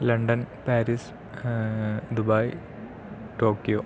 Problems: low volume